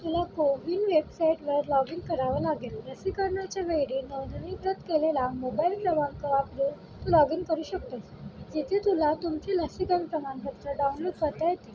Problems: constant background noise